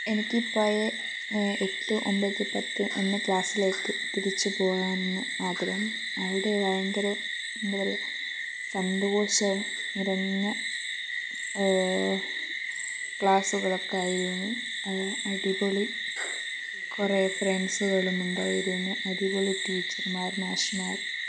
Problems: low volume